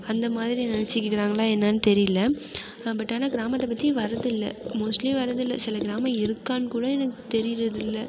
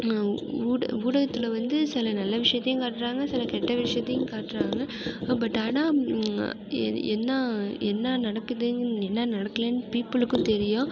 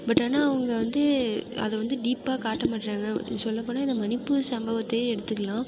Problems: background sounds at intervals